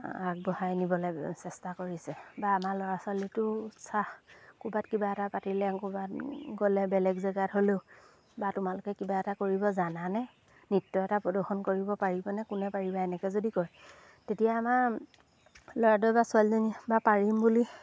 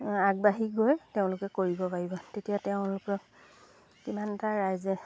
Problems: background sounds at intervals